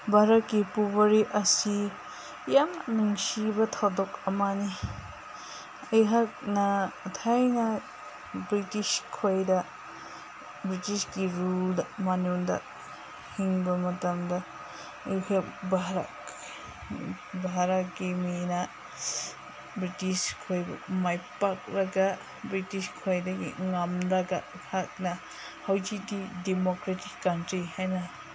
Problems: constant background noise